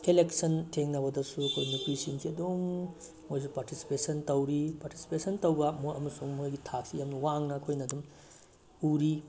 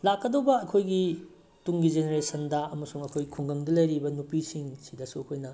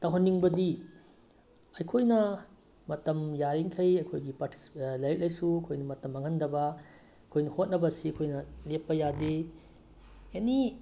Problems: background sounds at intervals